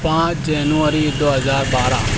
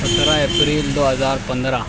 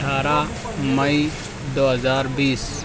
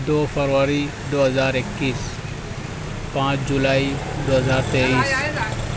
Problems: constant background noise, background conversations at intervals